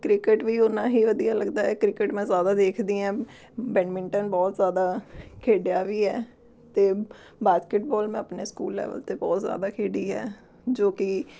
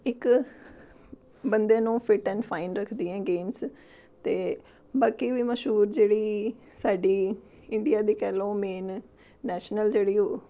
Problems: none marked